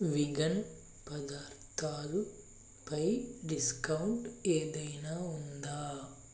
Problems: low volume